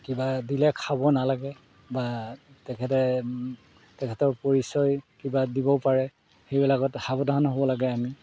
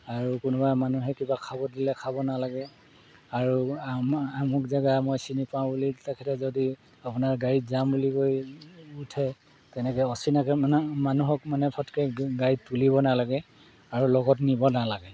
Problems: background sounds at intervals